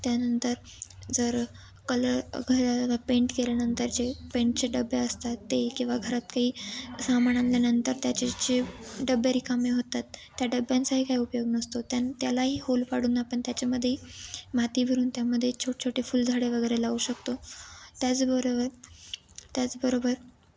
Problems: none marked